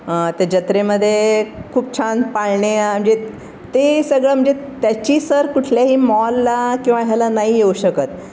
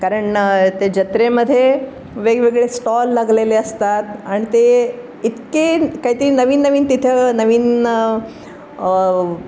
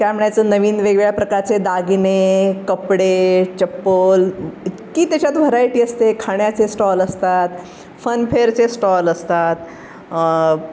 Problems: none marked